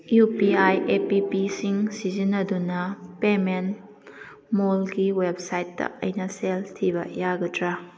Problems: background conversations at intervals